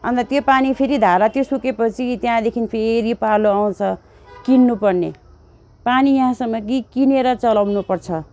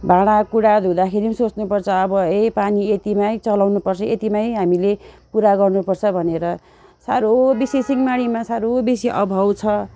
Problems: constant background noise